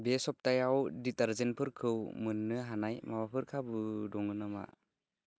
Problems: low volume